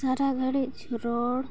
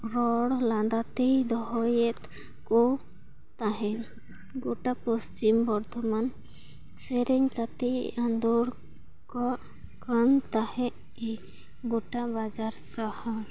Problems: background sounds at intervals